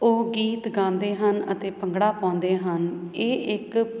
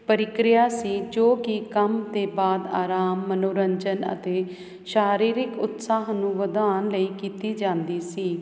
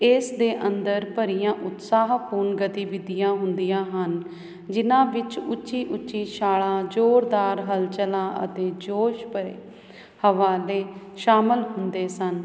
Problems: none marked